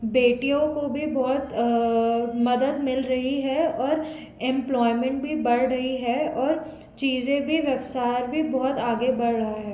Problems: none marked